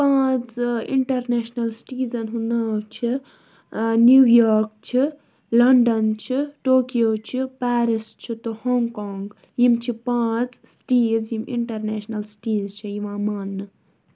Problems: none marked